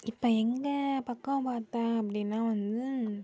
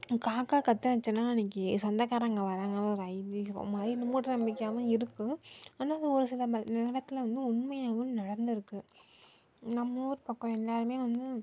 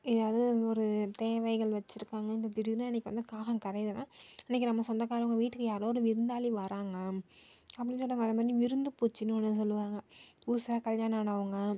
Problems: low volume